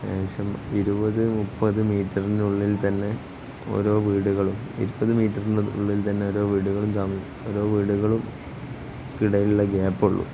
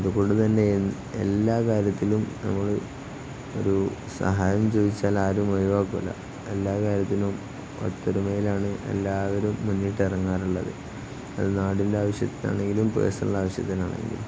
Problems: constant background noise, low volume